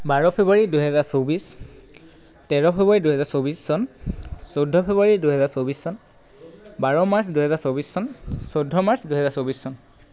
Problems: constant background noise